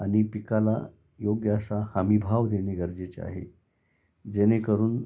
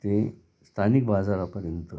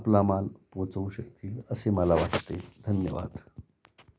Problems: constant background noise